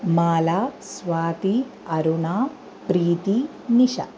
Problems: constant background noise